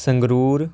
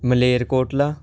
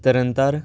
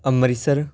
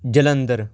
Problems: constant background noise